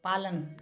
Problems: constant background noise